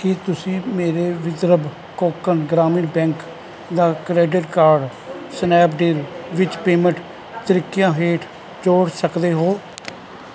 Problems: none marked